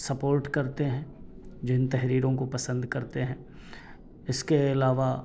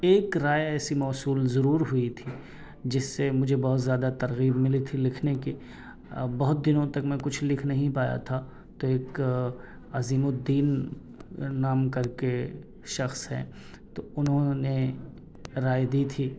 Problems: none marked